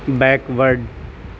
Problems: constant background noise